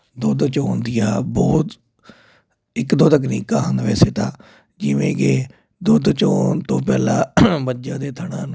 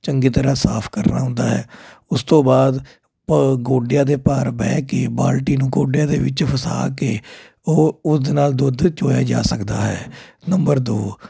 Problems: constant background noise